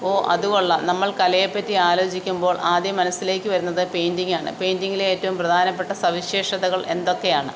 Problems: constant background noise